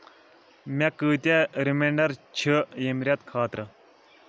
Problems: none marked